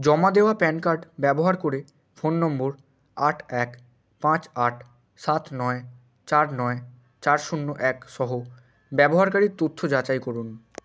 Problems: none marked